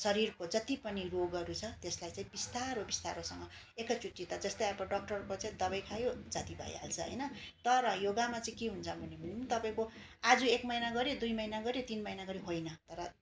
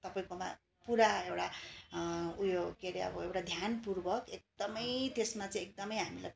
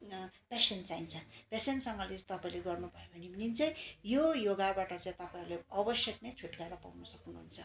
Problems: constant background noise